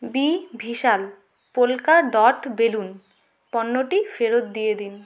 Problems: constant background noise